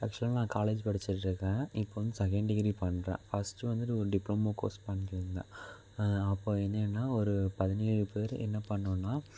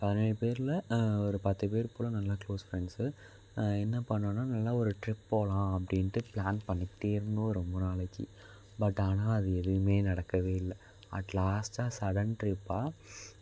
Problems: constant background noise